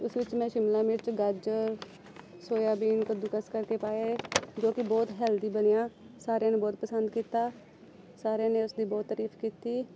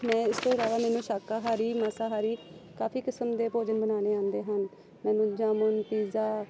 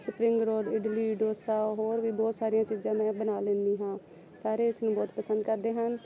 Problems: constant background noise